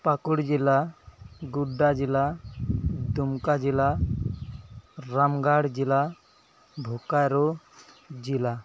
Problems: background sounds at intervals